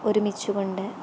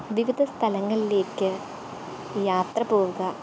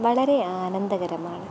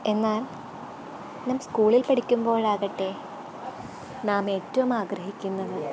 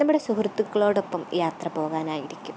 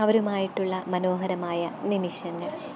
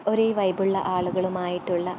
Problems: constant background noise, background conversations at intervals